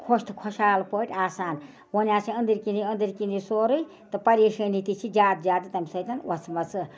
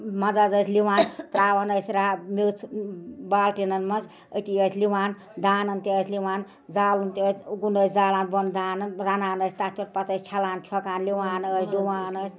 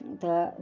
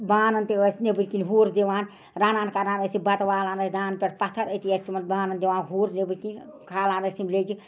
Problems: background conversations at intervals